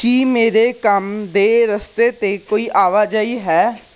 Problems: none marked